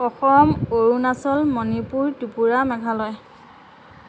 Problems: none marked